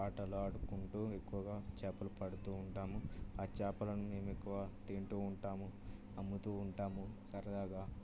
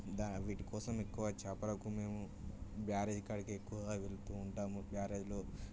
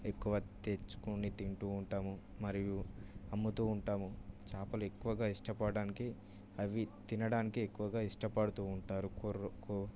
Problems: low volume